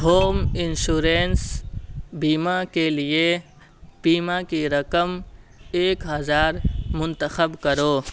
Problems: constant background noise